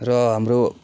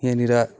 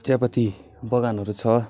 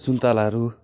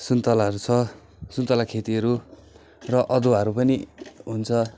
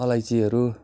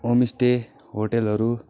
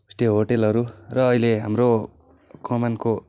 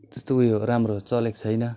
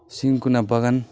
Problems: none marked